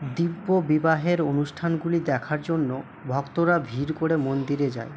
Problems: none marked